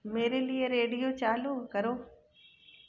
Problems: background sounds at intervals